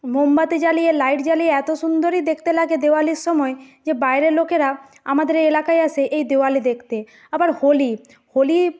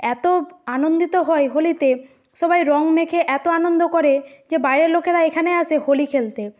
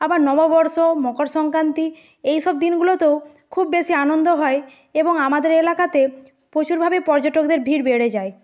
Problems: none marked